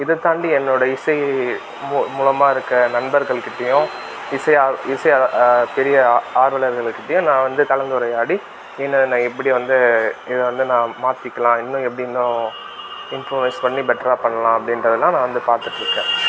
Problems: constant background noise